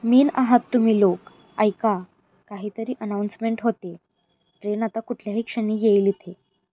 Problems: none marked